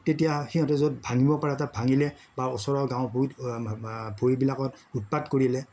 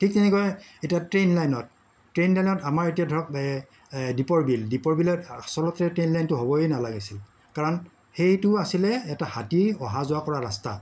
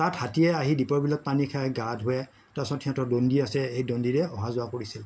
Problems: background sounds at intervals, background conversations at intervals